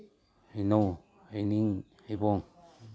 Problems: none marked